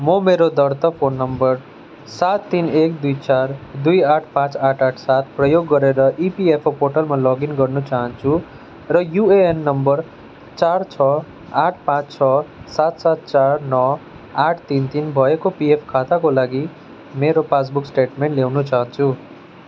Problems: continuous background conversations